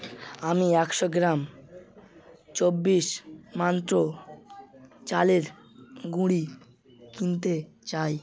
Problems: continuous background conversations